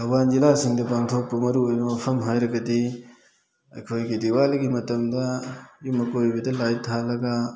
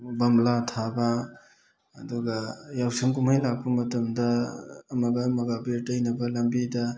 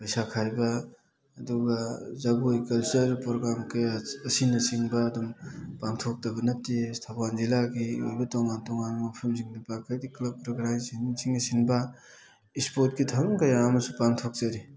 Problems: background sounds at intervals